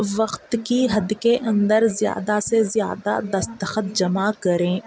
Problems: background conversations at intervals